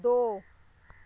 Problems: none marked